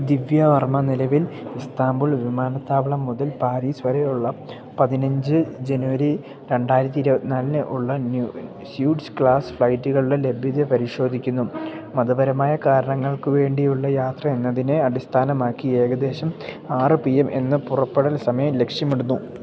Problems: none marked